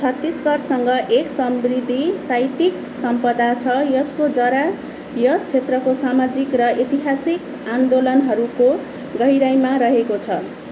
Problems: constant background noise